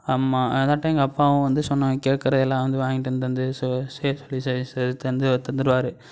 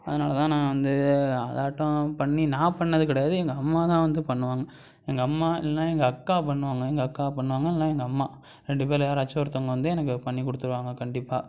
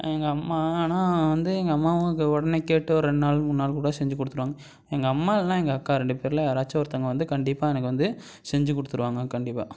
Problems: none marked